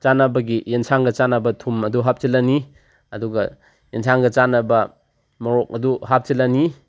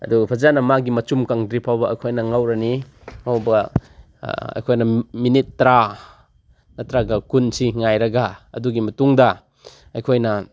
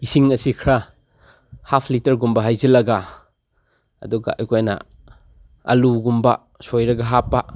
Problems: none marked